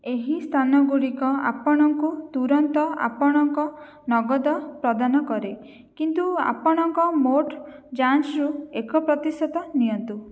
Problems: none marked